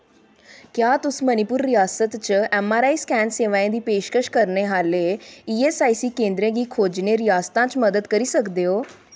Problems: background sounds at intervals